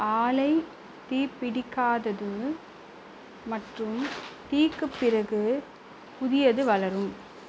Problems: constant background noise